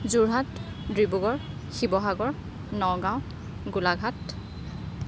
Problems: background sounds at intervals